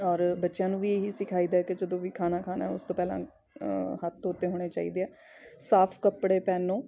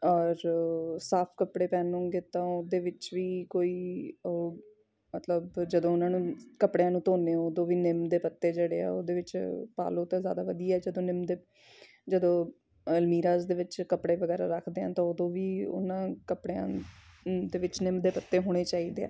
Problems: background sounds at intervals